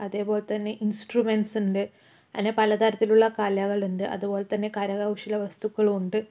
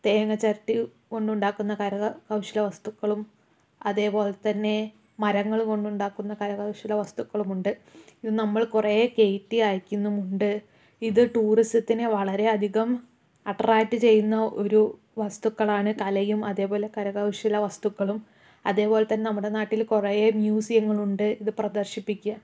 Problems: none marked